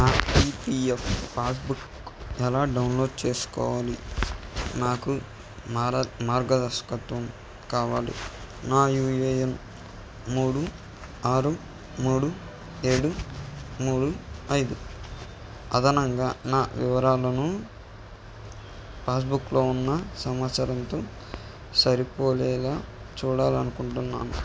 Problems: constant background noise